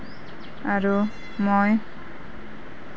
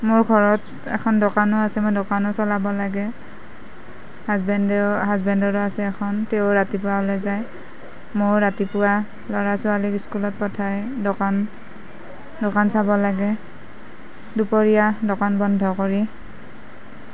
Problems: none marked